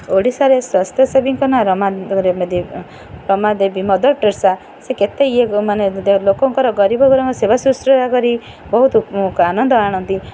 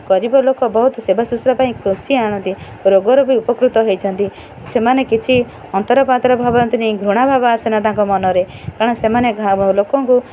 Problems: none marked